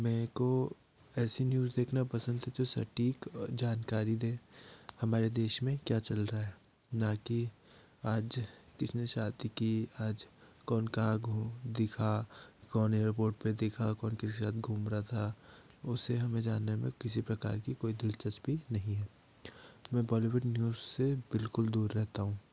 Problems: low volume